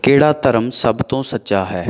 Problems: background sounds at intervals